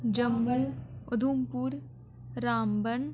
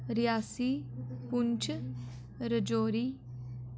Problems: background conversations at intervals, echo